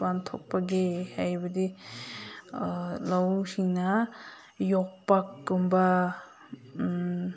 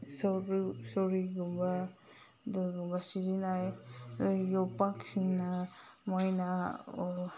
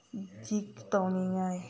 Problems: background sounds at intervals